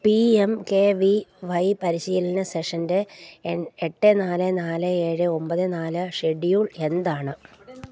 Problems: none marked